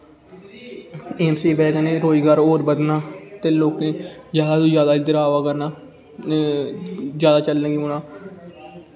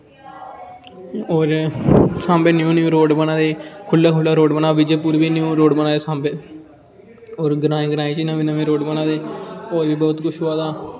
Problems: constant background noise